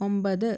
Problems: none marked